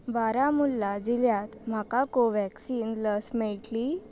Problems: none marked